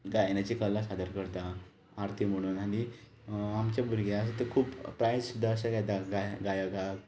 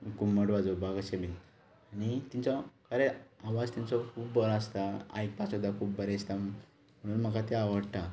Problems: none marked